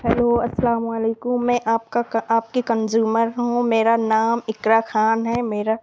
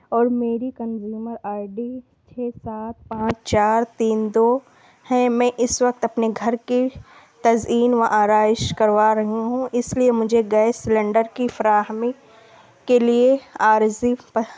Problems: constant background noise, low volume